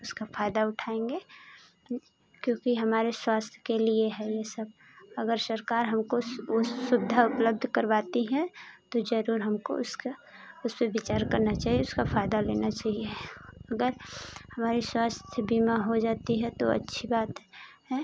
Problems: constant background noise